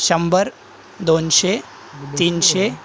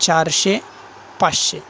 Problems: constant background noise